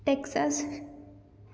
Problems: background sounds at intervals